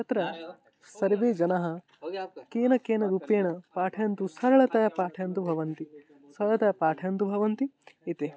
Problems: constant background noise